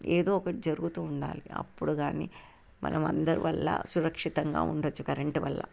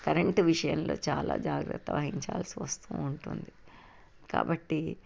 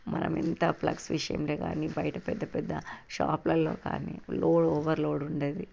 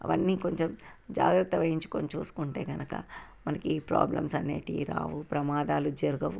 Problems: constant background noise